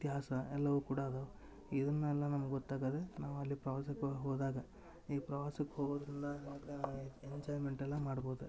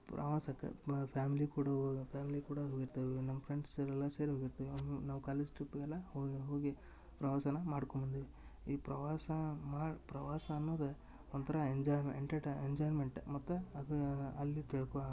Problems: background sounds at intervals, low volume